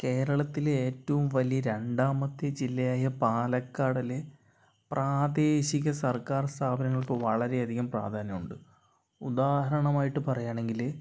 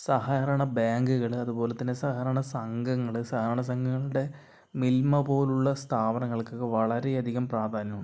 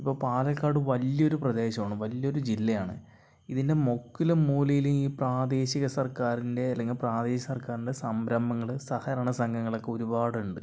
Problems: low volume